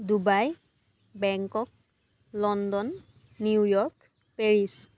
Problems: background conversations at intervals